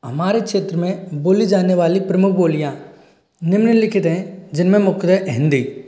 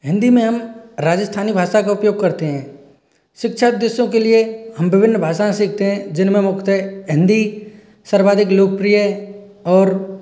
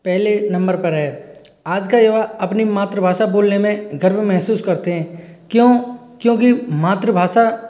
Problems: none marked